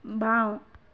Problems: none marked